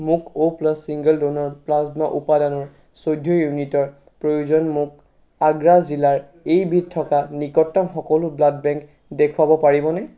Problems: background sounds at intervals